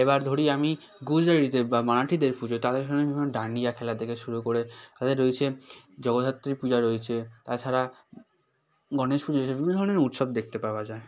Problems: constant background noise, background conversations at intervals